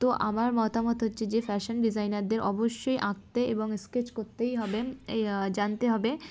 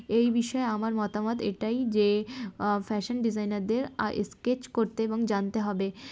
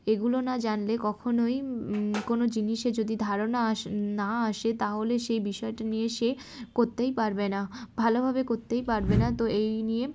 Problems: constant background noise